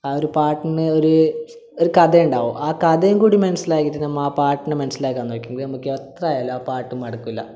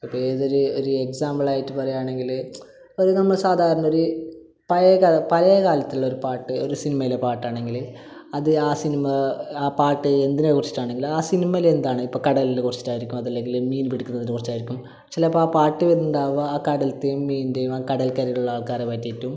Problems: low volume